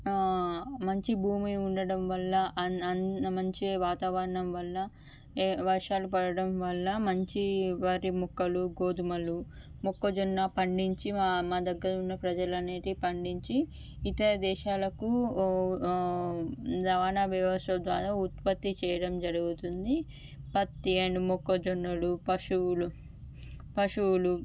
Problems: none marked